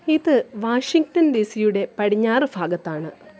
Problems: none marked